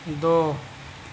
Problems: none marked